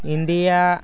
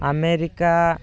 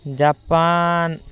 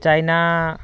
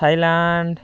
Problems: background sounds at intervals, background conversations at intervals